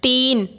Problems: constant background noise